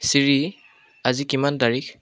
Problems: constant background noise